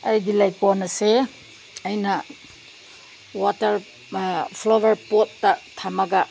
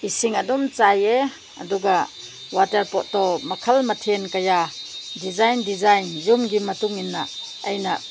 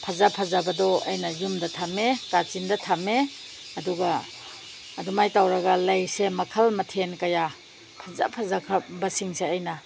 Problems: constant background noise